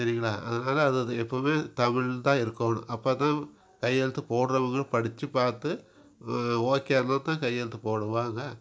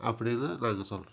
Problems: background sounds at intervals